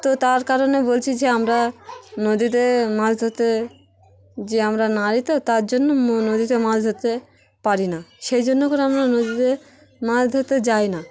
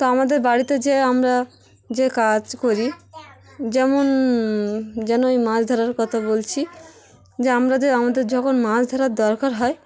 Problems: constant background noise, background conversations at intervals